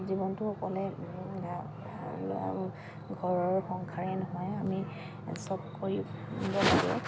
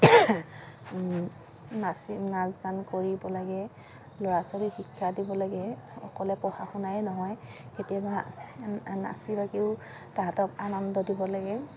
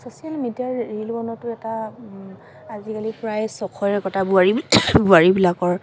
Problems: constant background noise